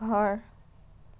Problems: background sounds at intervals